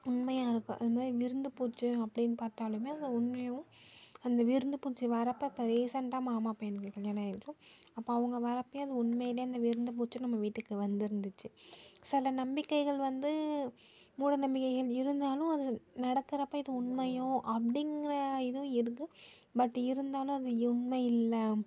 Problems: low volume